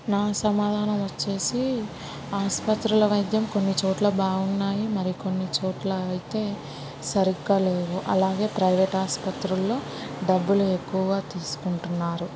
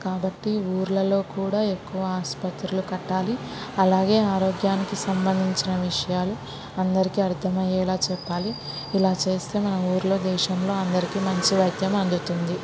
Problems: background sounds at intervals